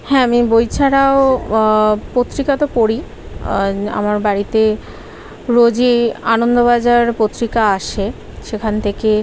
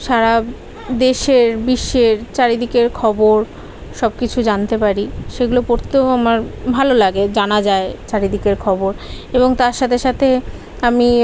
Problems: background conversations at intervals